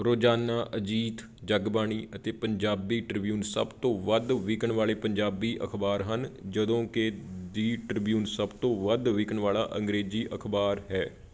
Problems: none marked